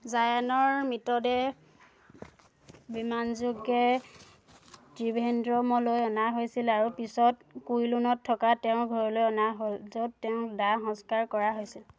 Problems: none marked